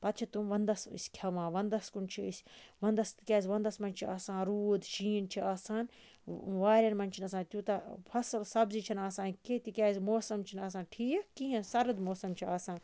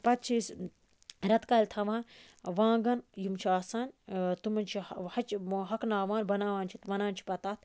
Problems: none marked